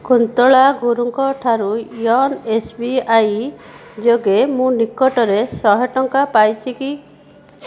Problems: background sounds at intervals